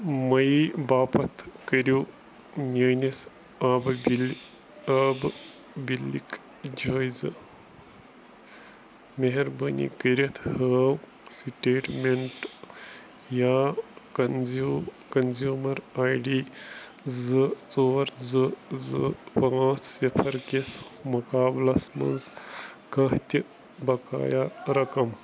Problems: none marked